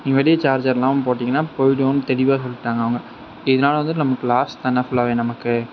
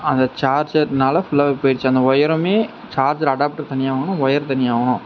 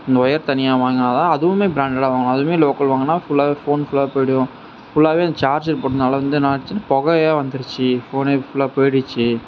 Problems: none marked